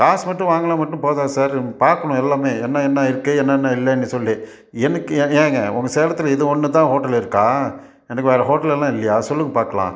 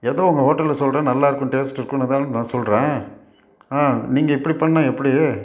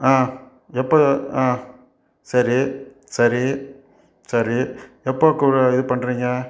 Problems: none marked